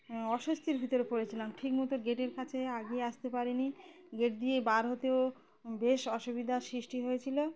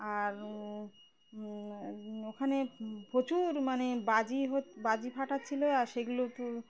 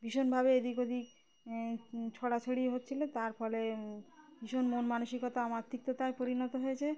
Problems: constant background noise, background conversations at intervals